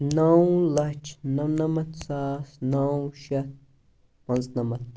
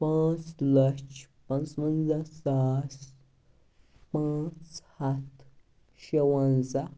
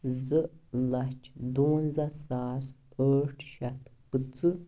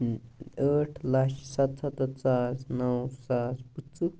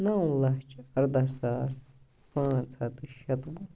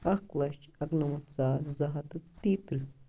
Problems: background sounds at intervals